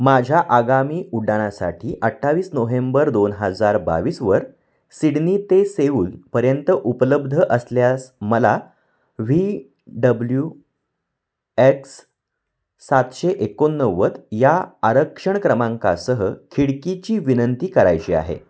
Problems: none marked